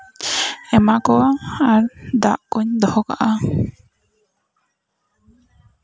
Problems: none marked